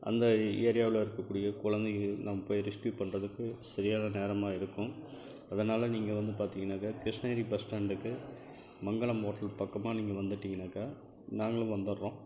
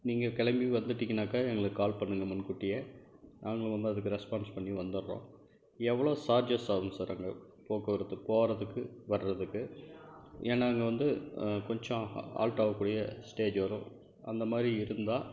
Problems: background sounds at intervals, low volume